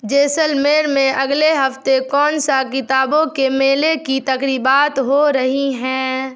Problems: none marked